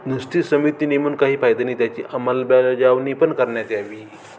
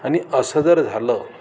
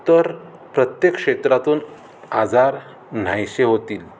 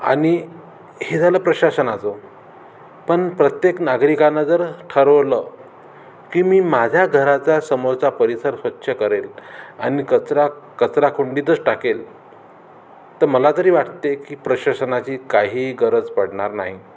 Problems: none marked